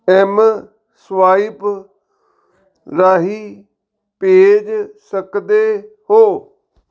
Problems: background sounds at intervals